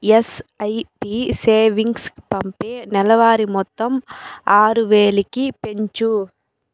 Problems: constant background noise